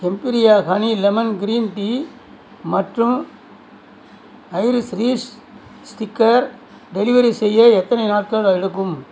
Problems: constant background noise